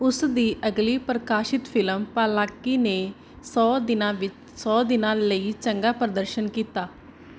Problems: none marked